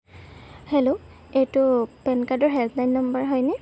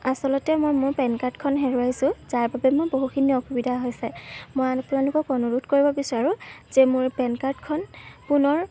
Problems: background sounds at intervals